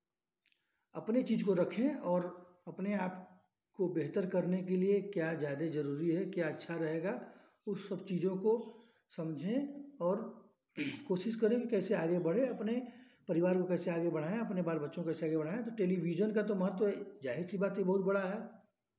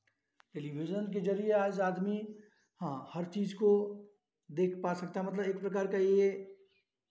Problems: none marked